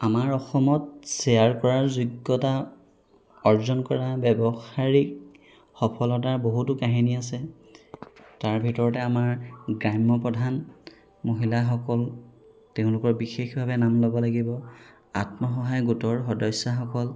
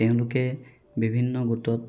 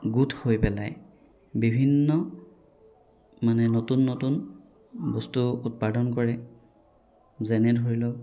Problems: background sounds at intervals